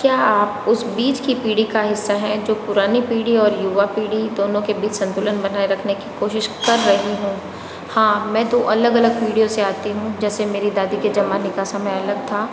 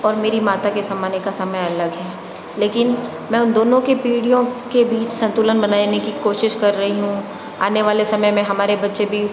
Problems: constant background noise